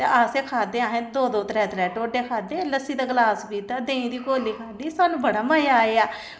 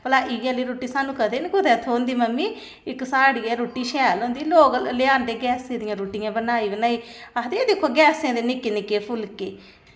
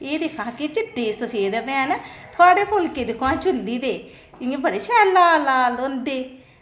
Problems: none marked